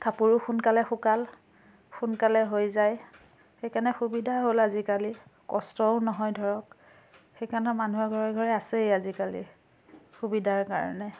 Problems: constant background noise